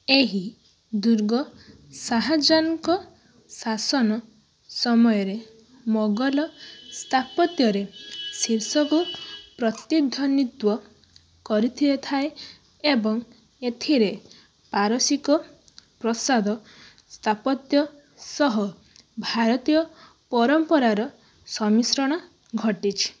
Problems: background sounds at intervals